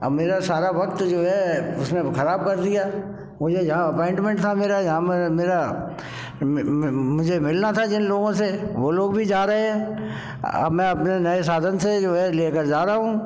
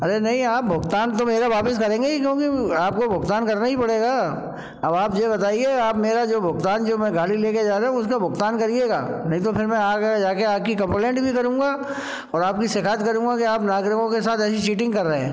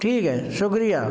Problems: none marked